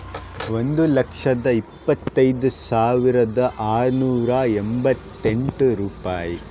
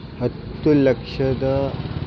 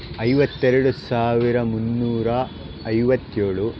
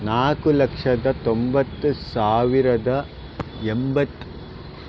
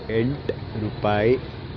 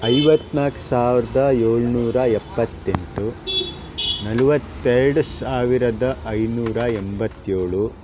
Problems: constant background noise